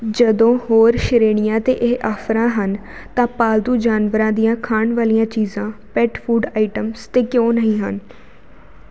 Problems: none marked